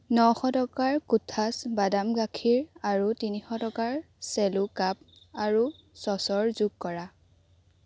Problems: constant background noise